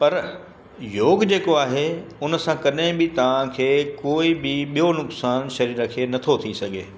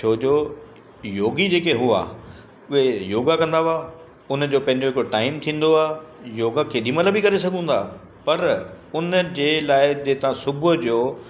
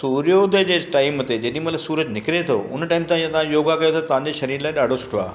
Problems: constant background noise, echo